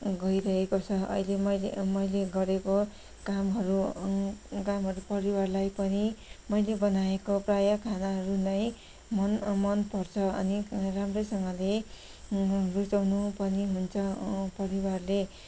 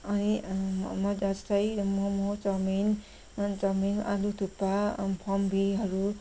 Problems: background sounds at intervals